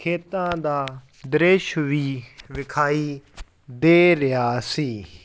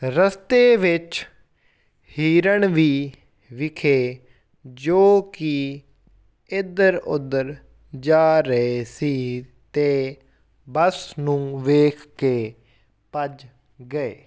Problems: background sounds at intervals